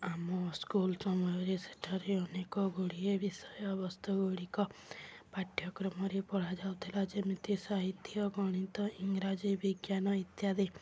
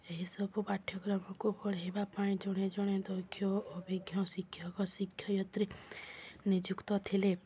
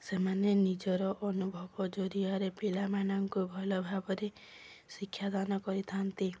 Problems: background sounds at intervals